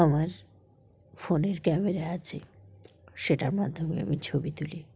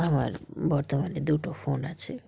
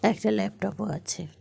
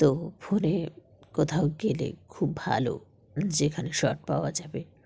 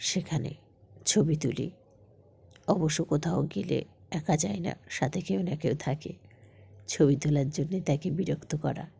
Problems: none marked